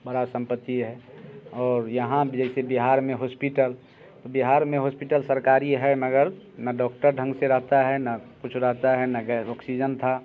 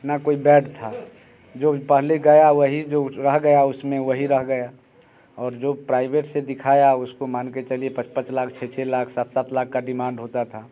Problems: background sounds at intervals